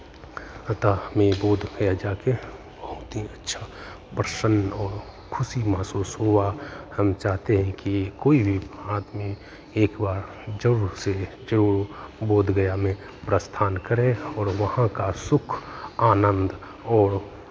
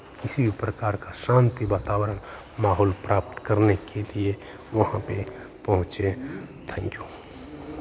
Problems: background sounds at intervals